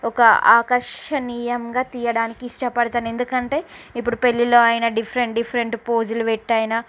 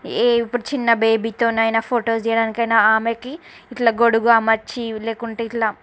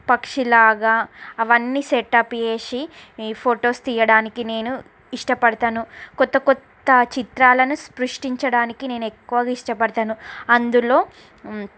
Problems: background conversations at intervals